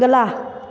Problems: none marked